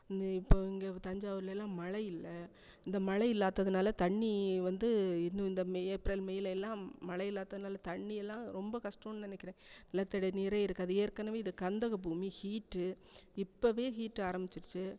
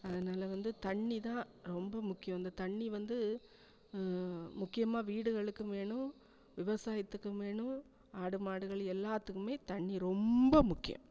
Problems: background sounds at intervals